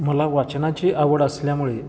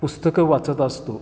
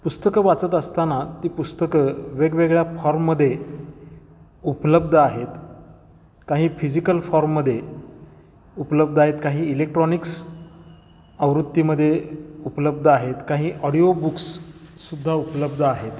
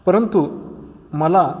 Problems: constant background noise, echo